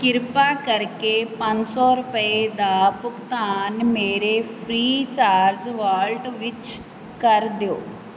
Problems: constant background noise